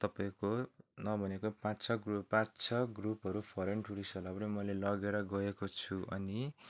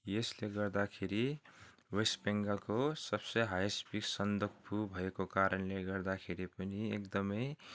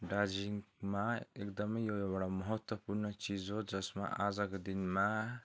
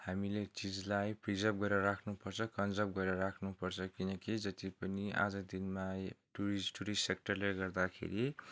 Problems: background sounds at intervals